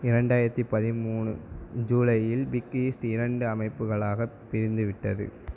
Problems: none marked